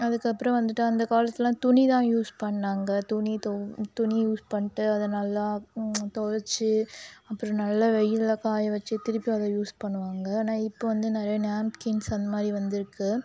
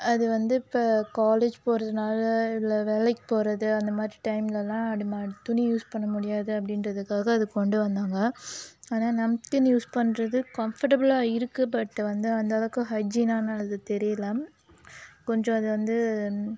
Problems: none marked